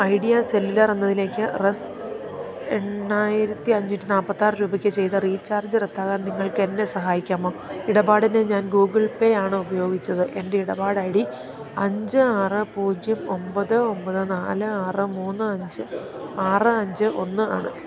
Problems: continuous background conversations